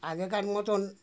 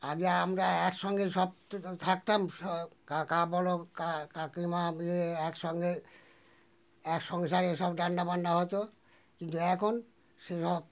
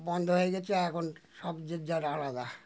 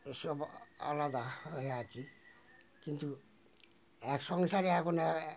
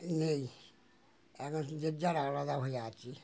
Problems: constant background noise